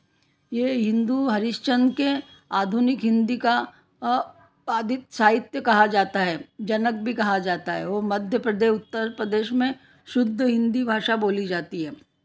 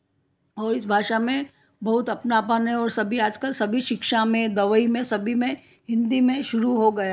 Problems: background conversations at intervals